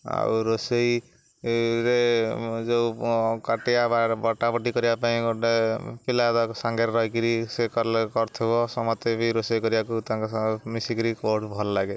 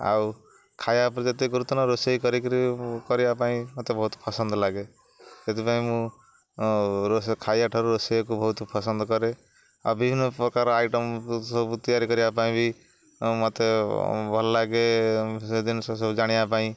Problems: none marked